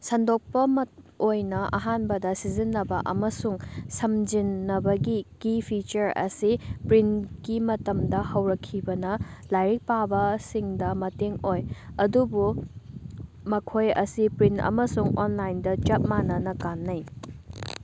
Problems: constant background noise